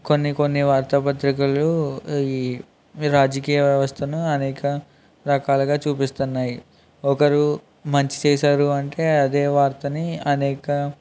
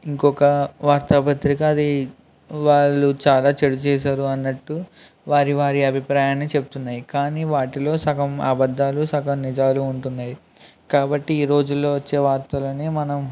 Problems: background sounds at intervals